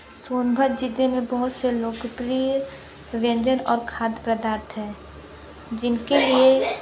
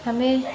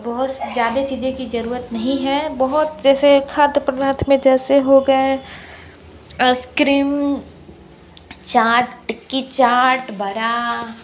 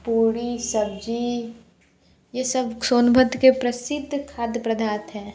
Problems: none marked